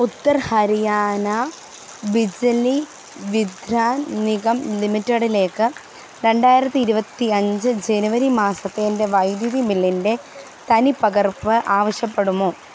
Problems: constant background noise